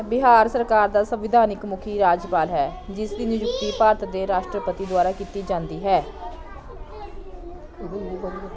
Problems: continuous background conversations